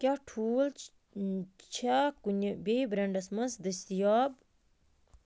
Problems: constant background noise